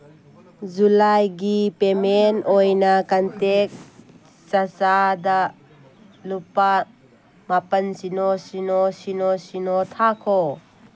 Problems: background sounds at intervals